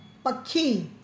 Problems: constant background noise, echo